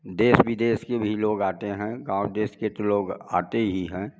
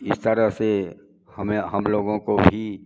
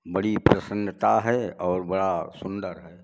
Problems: background sounds at intervals